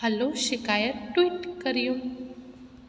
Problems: constant background noise, echo